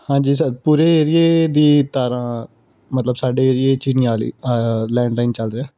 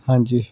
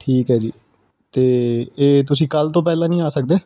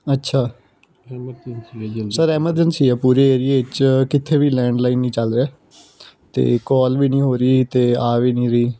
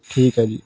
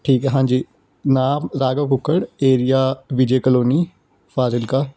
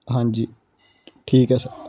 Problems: background sounds at intervals